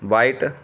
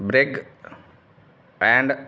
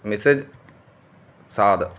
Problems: background sounds at intervals